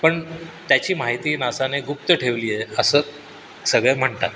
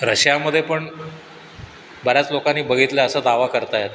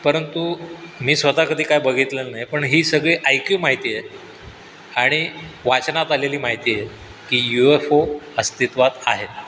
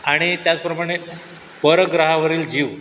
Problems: none marked